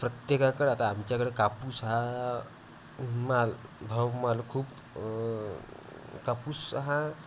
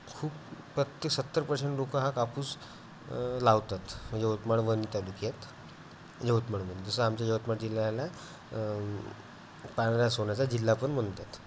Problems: none marked